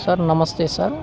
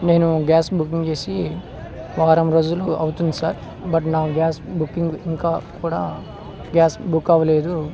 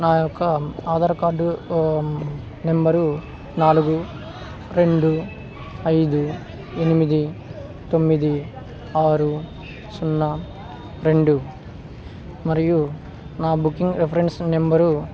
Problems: constant background noise